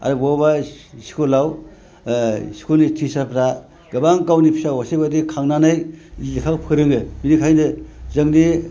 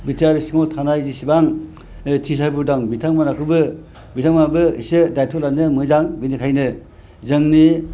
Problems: none marked